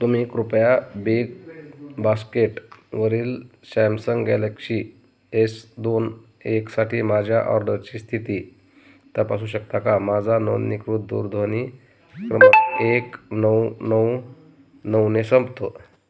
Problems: none marked